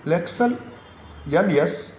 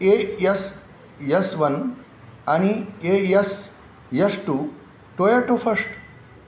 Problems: none marked